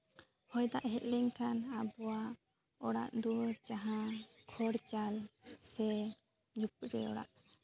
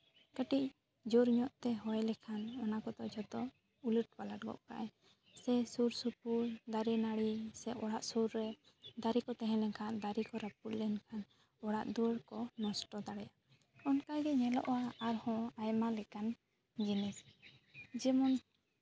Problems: constant background noise